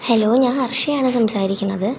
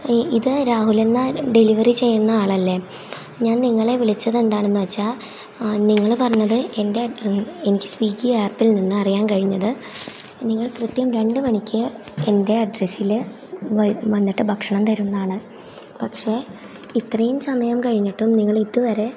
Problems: none marked